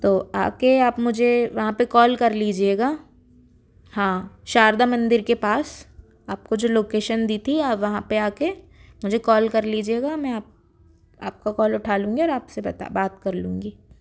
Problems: background sounds at intervals